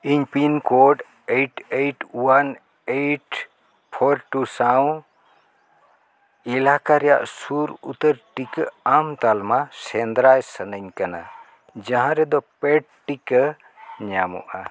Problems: background sounds at intervals